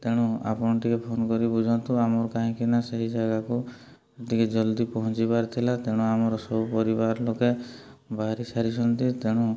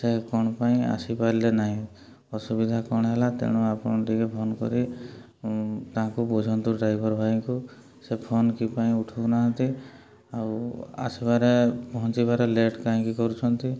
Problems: low volume